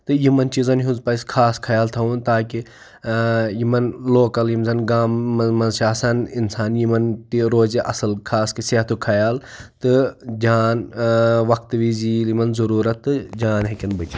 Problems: none marked